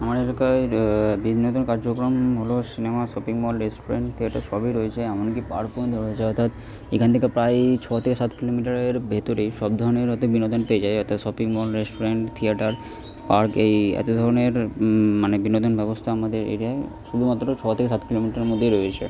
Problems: constant background noise